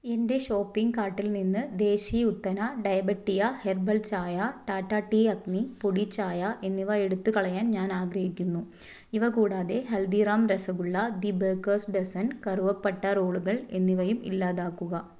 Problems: low volume